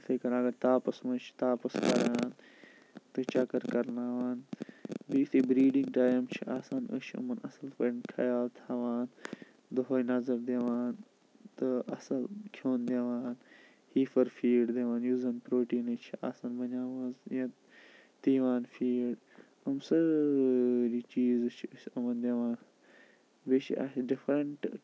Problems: constant background noise